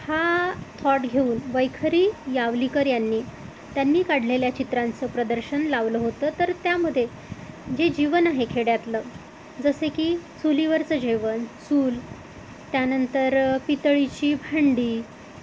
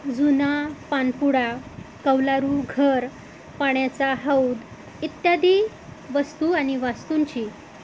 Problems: none marked